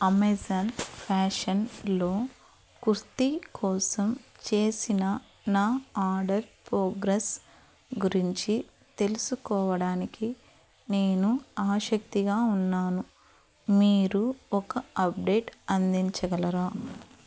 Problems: background sounds at intervals